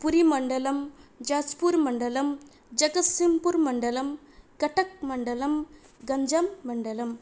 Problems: none marked